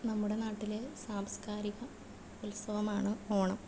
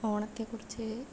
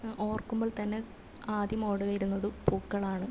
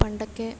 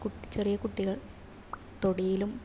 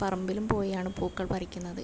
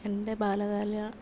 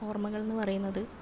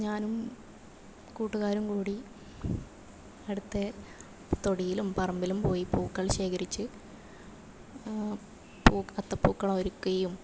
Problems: low volume